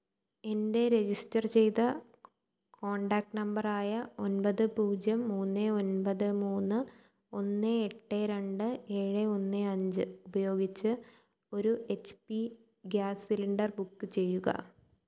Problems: low volume